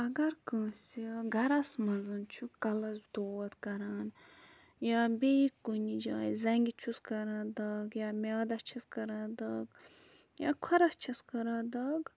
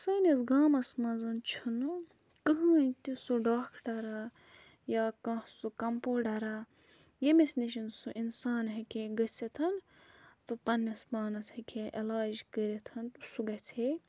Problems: background sounds at intervals